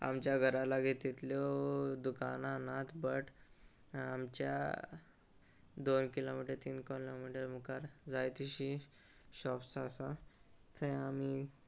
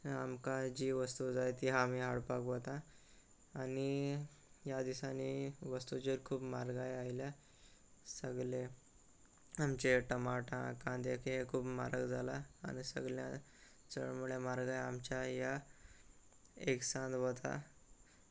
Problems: none marked